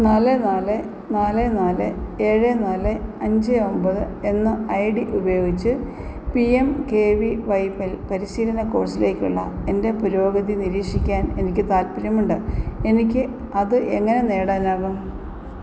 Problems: constant background noise